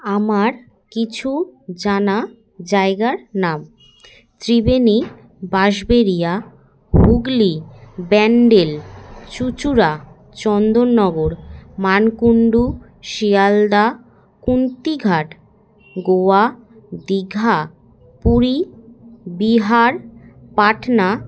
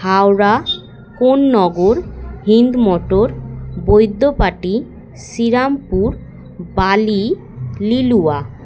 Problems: constant background noise